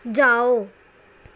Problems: none marked